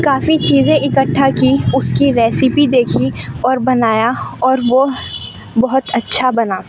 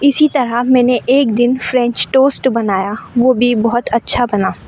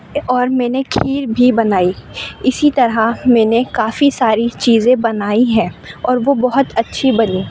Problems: constant background noise